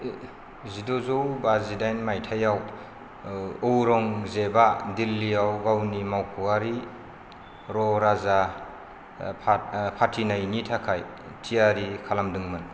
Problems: low volume